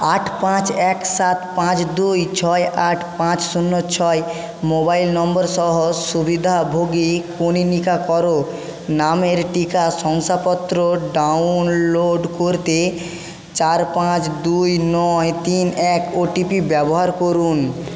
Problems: constant background noise, echo